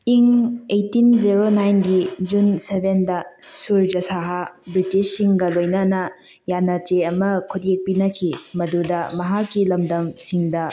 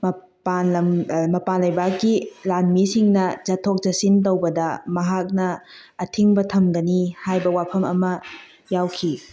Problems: background sounds at intervals